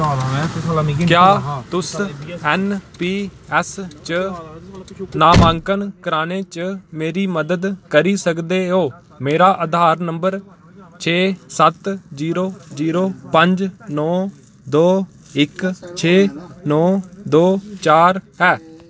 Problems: none marked